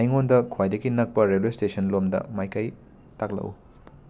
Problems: background sounds at intervals